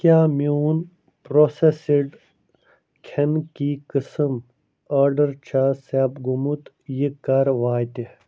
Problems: none marked